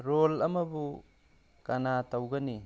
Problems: background sounds at intervals